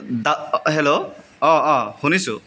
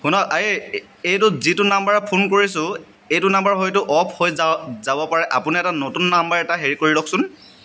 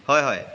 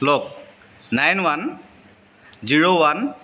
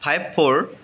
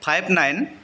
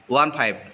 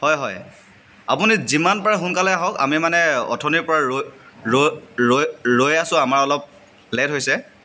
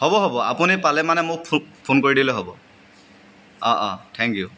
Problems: constant background noise, background conversations at intervals